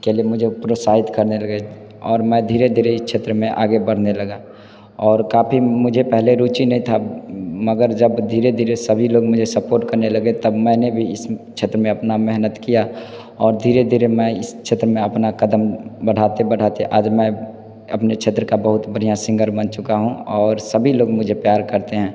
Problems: constant background noise, background conversations at intervals